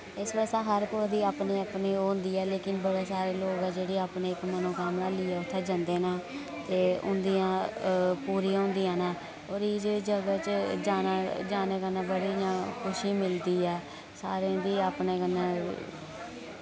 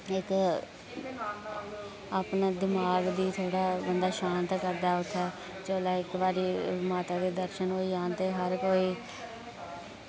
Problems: constant background noise